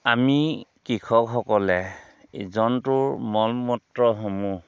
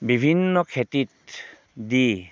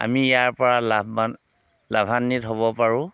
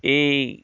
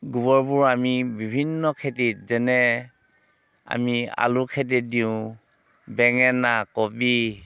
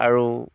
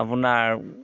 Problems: background sounds at intervals